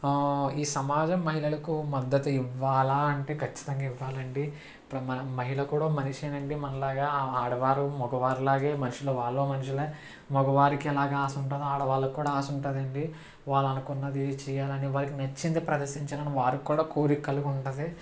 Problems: constant background noise